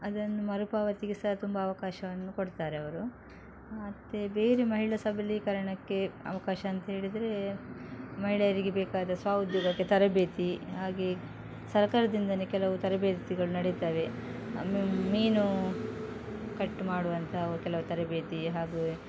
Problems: background sounds at intervals